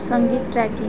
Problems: constant background noise, background conversations at intervals